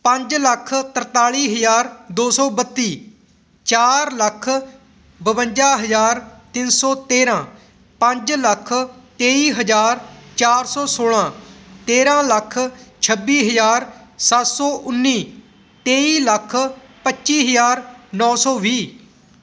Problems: constant background noise